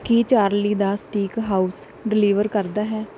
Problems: background sounds at intervals